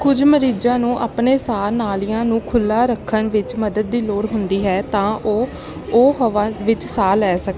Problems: constant background noise